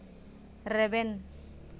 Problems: constant background noise